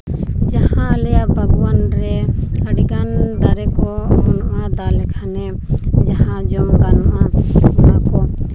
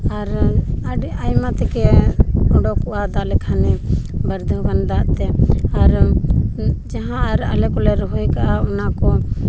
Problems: constant background noise